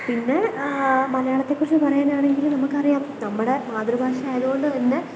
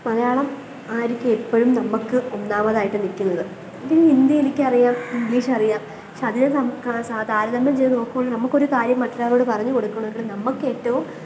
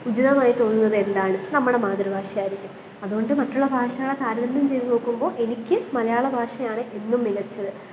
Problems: constant background noise